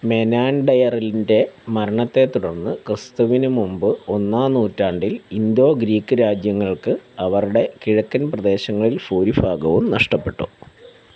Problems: constant background noise